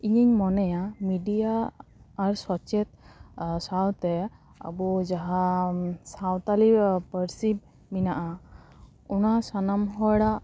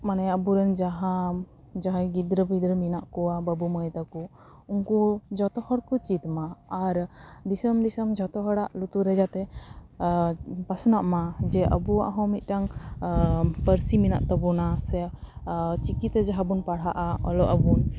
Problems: constant background noise